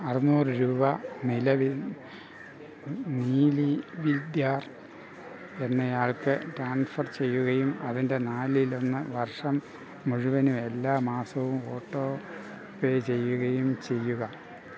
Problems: background sounds at intervals